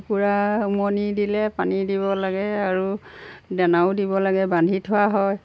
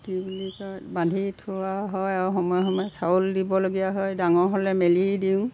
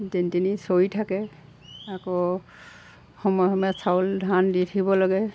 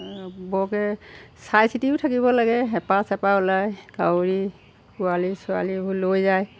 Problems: background sounds at intervals